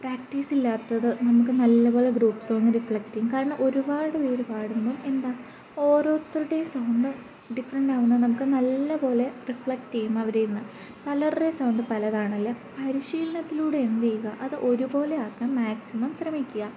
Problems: constant background noise